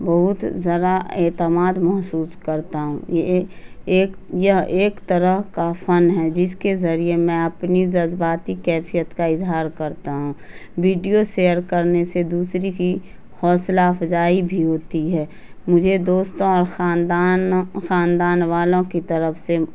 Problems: constant background noise